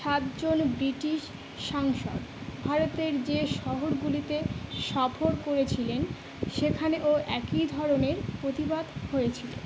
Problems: none marked